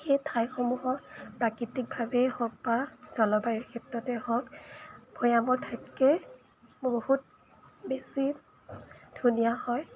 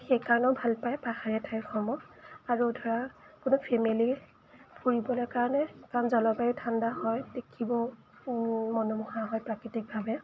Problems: background sounds at intervals